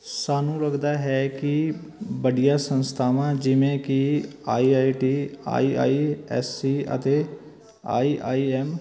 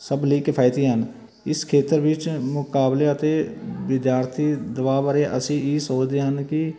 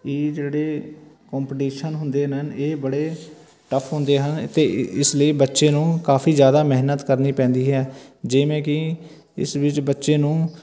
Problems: none marked